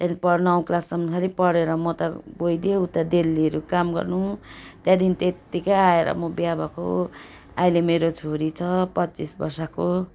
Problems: none marked